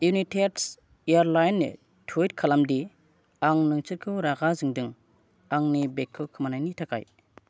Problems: none marked